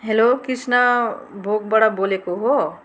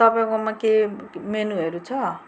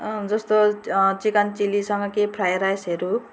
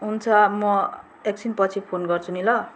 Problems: background sounds at intervals